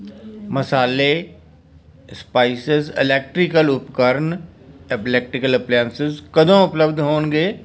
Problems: background conversations at intervals